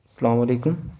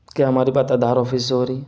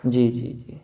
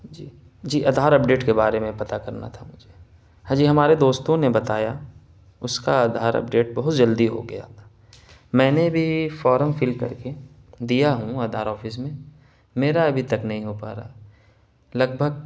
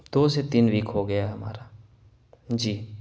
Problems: constant background noise